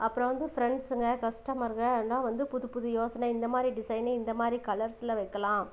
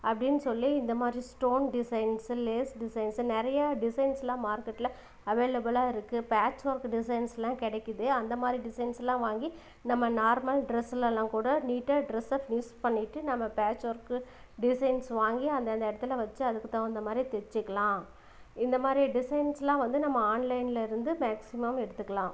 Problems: none marked